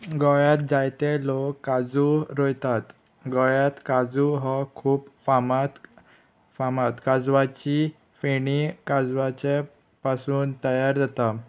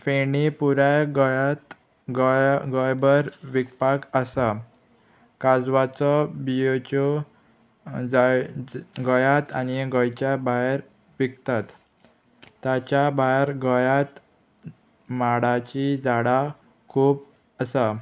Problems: none marked